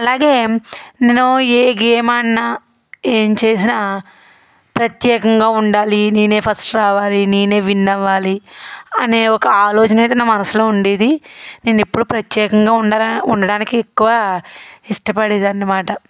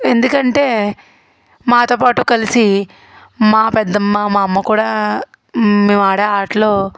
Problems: background sounds at intervals